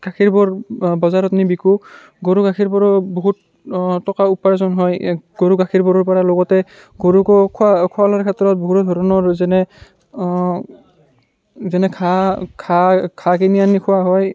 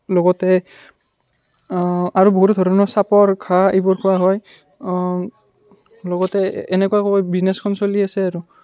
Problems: background sounds at intervals